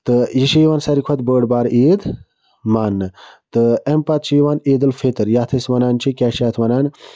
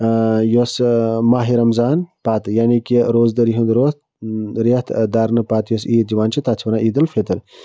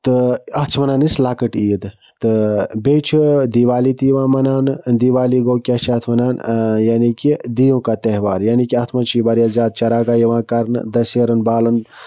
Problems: none marked